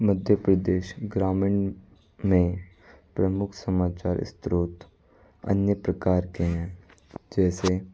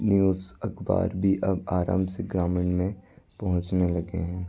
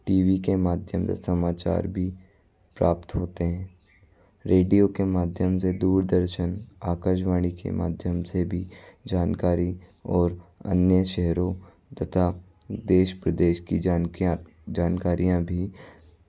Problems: background sounds at intervals